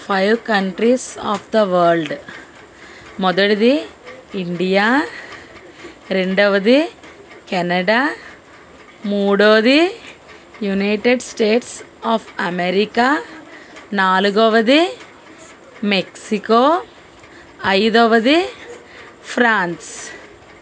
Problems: constant background noise